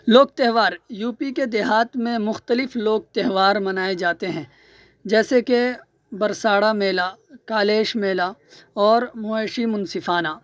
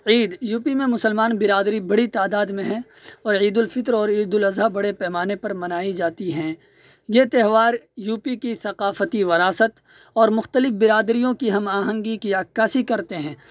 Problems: none marked